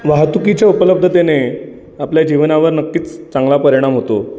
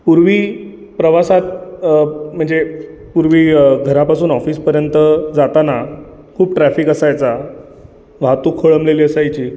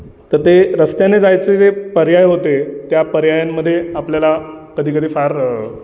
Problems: constant background noise